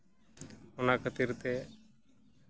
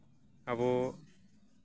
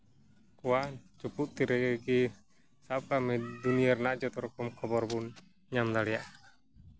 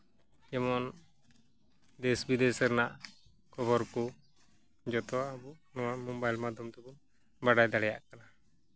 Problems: background sounds at intervals